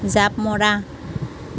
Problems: constant background noise